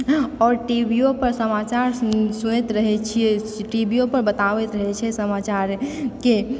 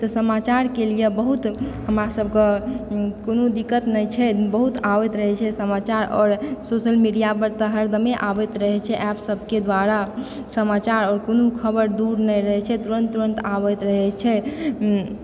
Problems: background sounds at intervals